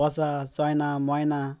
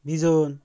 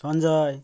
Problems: constant background noise, background conversations at intervals